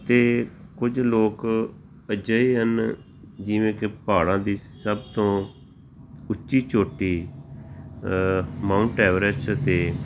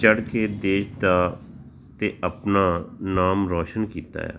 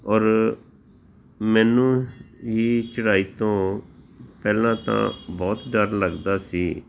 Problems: none marked